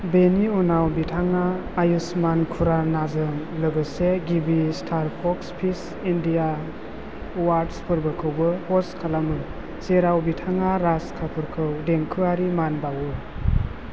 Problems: constant background noise